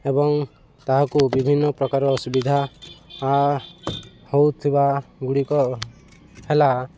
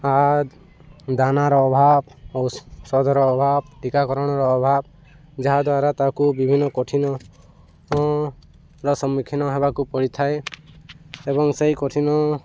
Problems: none marked